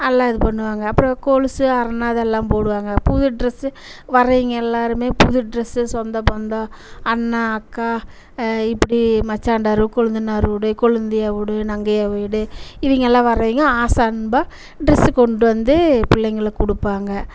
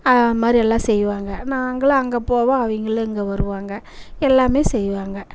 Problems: none marked